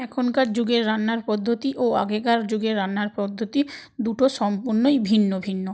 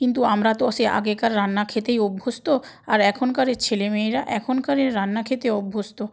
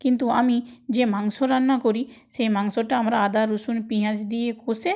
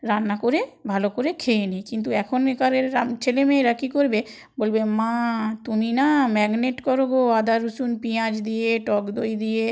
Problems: none marked